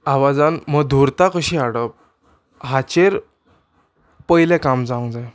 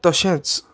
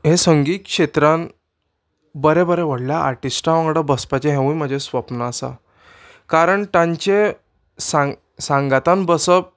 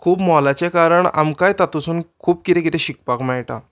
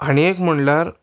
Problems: background sounds at intervals